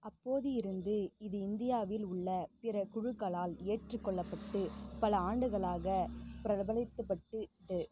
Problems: constant background noise, low volume